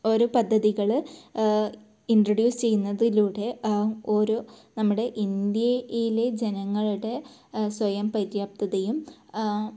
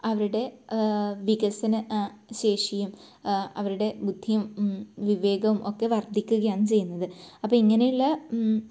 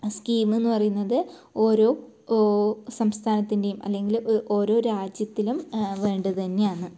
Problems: low volume